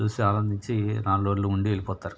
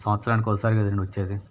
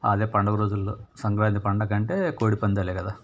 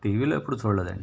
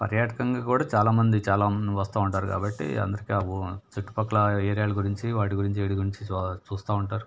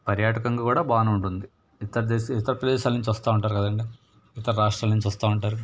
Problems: none marked